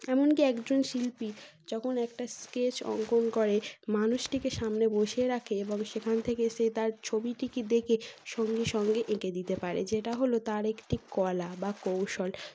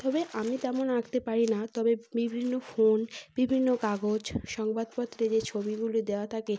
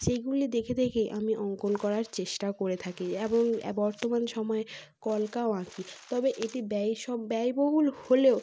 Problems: constant background noise